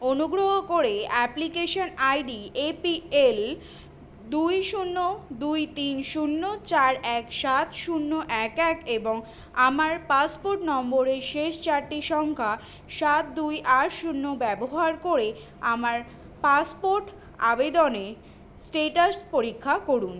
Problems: constant background noise